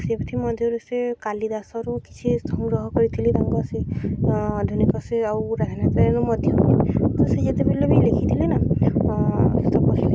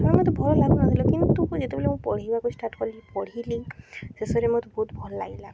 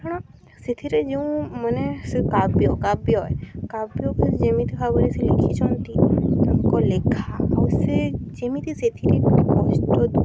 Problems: constant background noise, background conversations at intervals